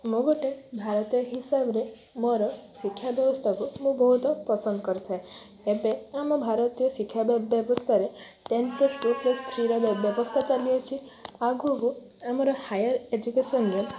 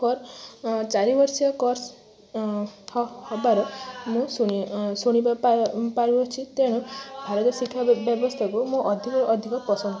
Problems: constant background noise